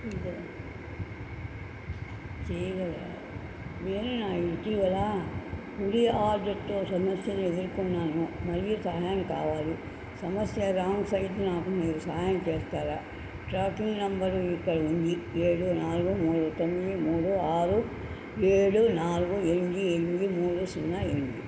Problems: constant background noise, low volume